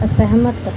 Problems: background sounds at intervals